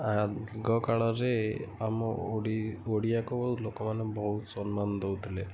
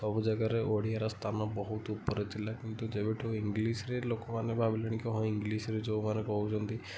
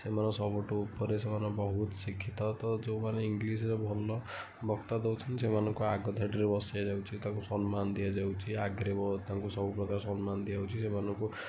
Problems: low volume